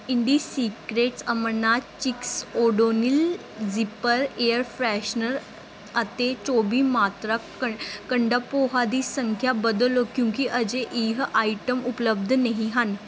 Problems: background sounds at intervals